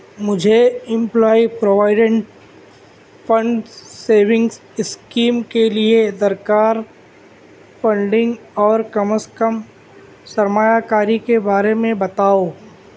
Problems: constant background noise